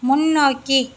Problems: constant background noise